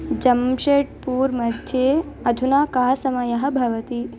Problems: none marked